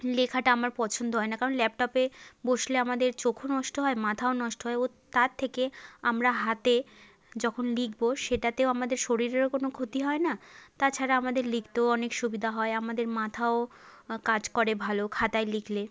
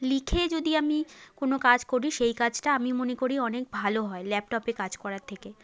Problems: background conversations at intervals